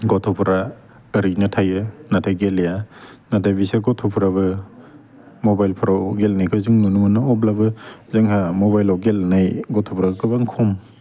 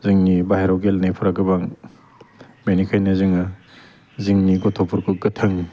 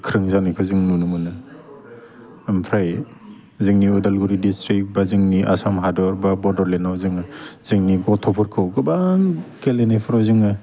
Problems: constant background noise